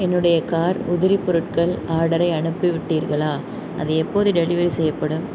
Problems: background sounds at intervals